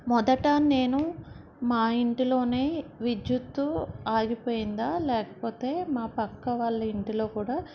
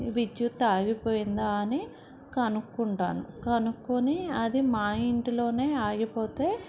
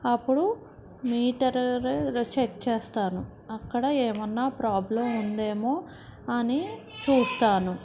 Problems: background conversations at intervals